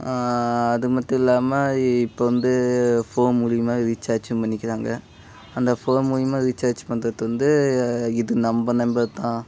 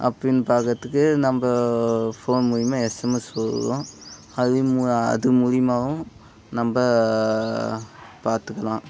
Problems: background sounds at intervals